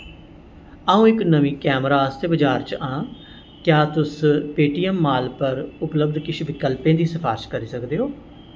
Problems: constant background noise, echo